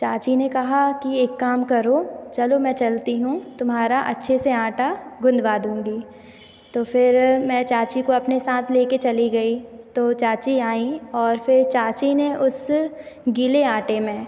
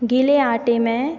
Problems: none marked